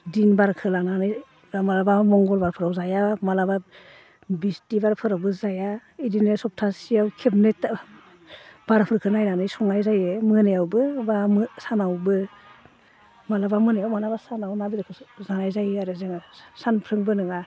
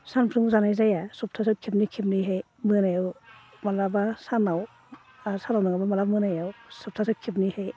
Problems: low volume